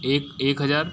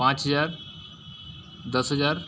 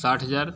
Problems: background sounds at intervals